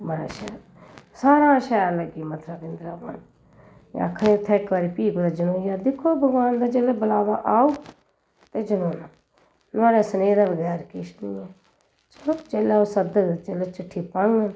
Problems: none marked